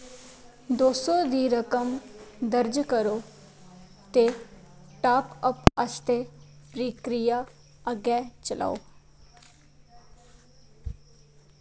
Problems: constant background noise